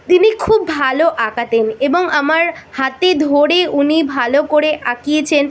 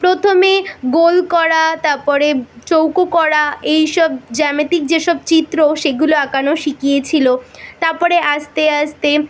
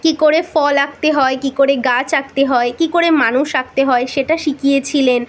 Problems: none marked